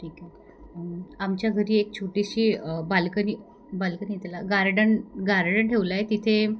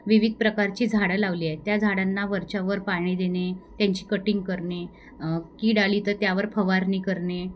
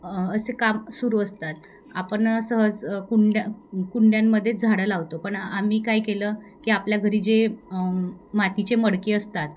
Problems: none marked